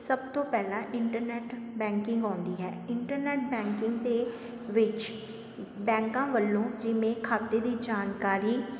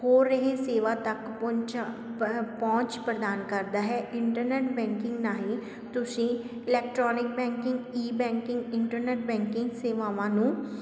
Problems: constant background noise